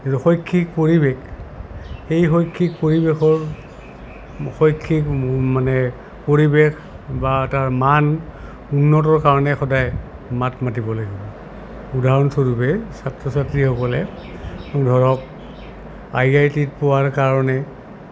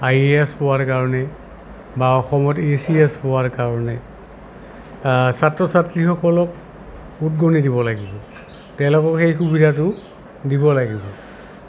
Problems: constant background noise